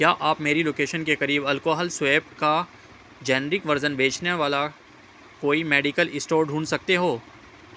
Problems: constant background noise